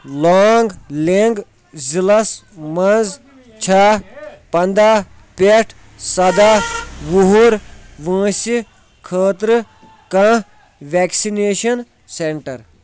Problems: constant background noise